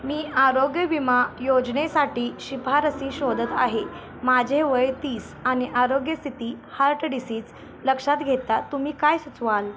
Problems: constant background noise, continuous background conversations